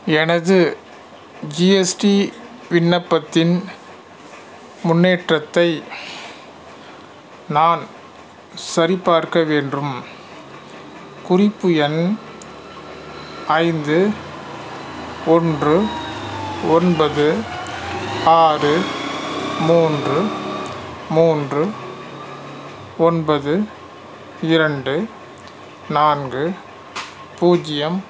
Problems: constant background noise